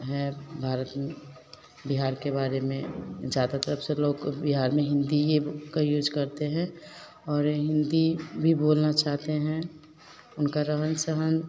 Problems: none marked